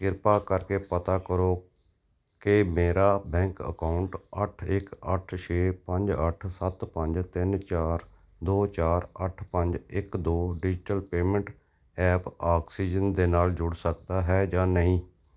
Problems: none marked